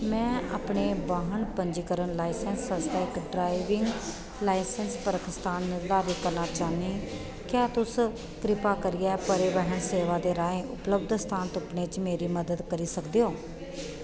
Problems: constant background noise, echo